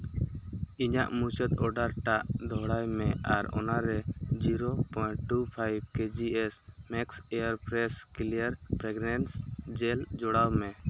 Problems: background sounds at intervals